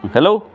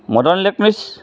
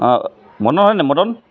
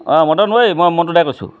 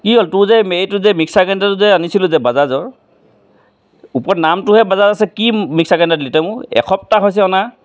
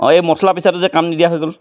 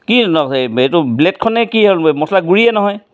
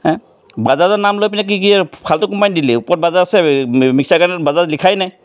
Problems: constant background noise